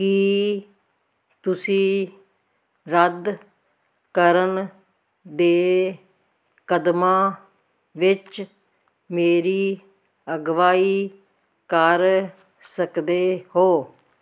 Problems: none marked